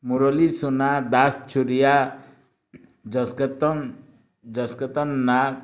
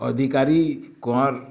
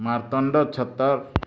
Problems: none marked